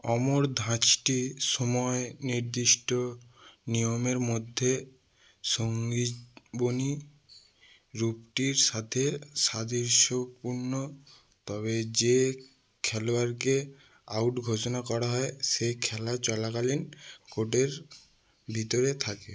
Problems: none marked